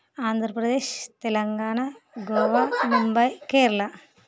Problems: background sounds at intervals